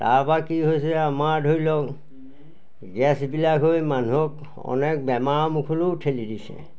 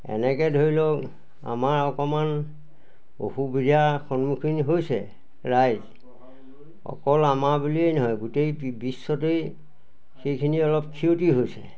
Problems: none marked